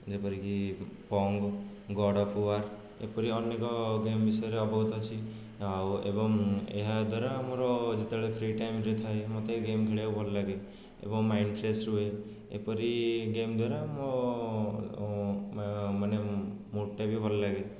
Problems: low volume